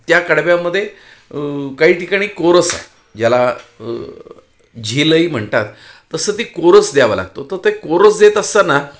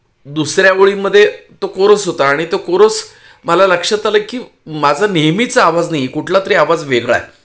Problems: none marked